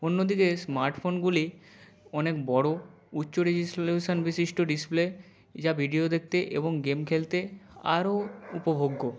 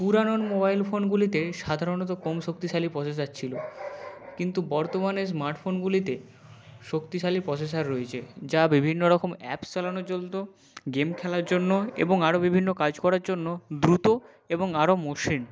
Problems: none marked